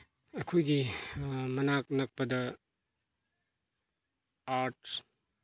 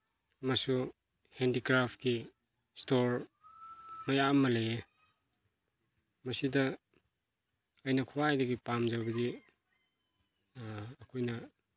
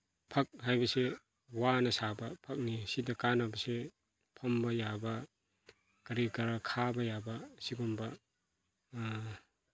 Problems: background conversations at intervals